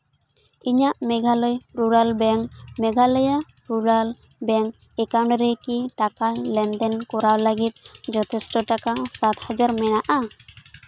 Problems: constant background noise